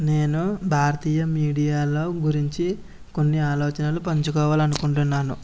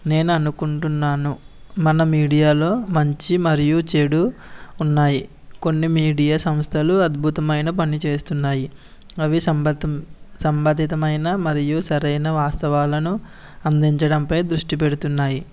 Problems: background sounds at intervals